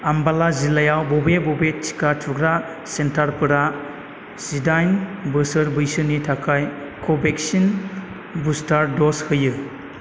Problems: constant background noise